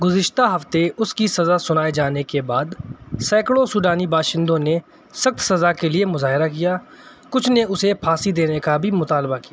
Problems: none marked